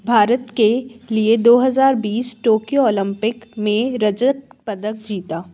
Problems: background sounds at intervals